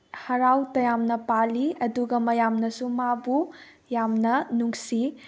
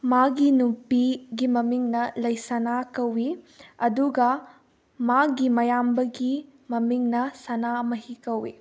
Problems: background sounds at intervals